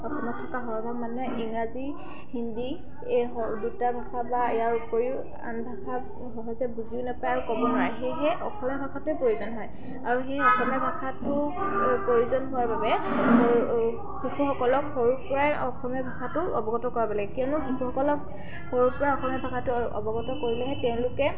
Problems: background sounds at intervals, continuous background conversations